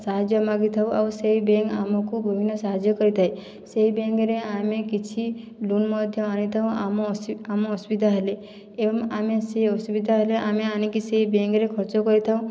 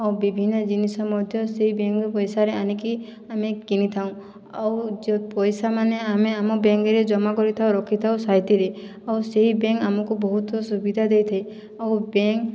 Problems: none marked